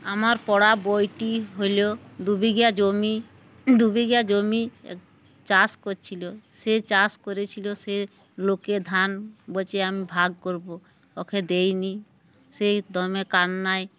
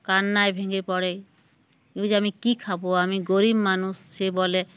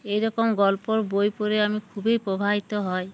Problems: background sounds at intervals